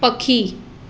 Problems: constant background noise